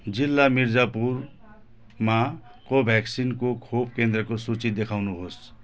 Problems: background sounds at intervals